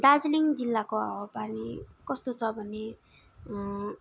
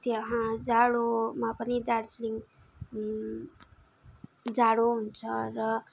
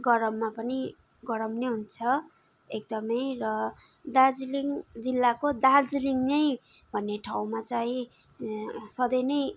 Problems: background sounds at intervals